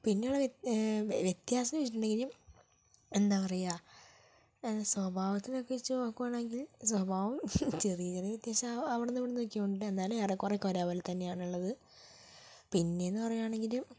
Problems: low volume